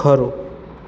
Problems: constant background noise